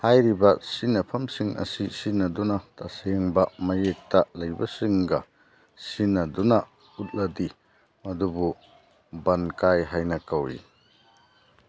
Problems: background sounds at intervals